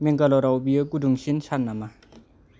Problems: low volume